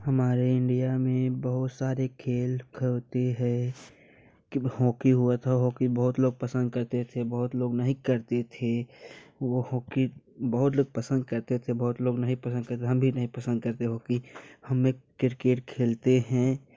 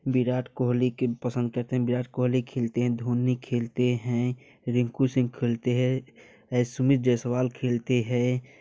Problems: none marked